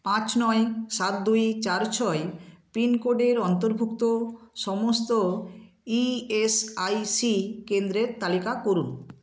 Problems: background sounds at intervals